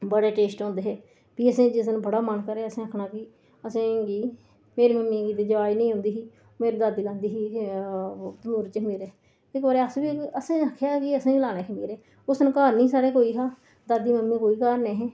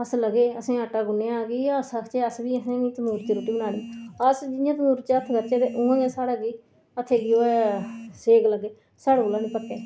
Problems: background sounds at intervals, low volume